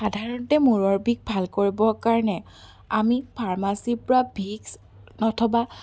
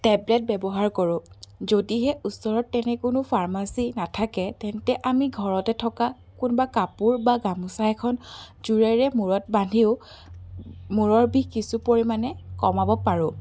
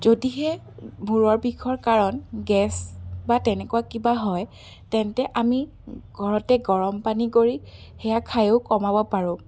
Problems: none marked